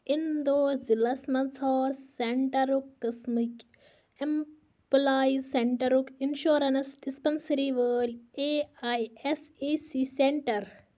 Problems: constant background noise